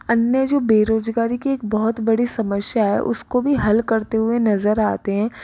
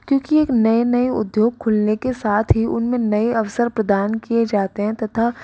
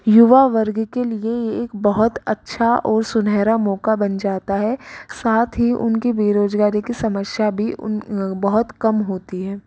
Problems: background sounds at intervals